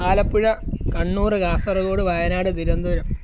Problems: constant background noise, low volume